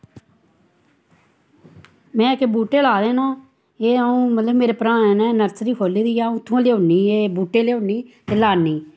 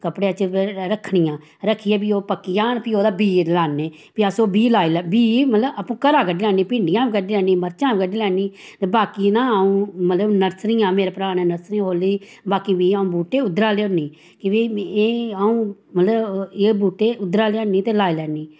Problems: none marked